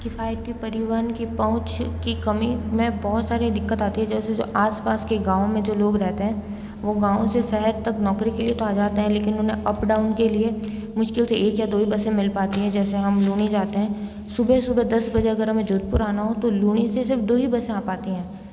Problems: constant background noise, background conversations at intervals